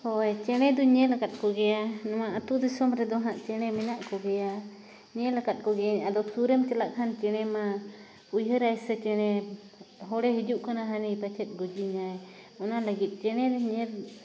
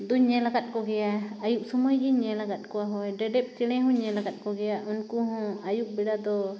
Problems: constant background noise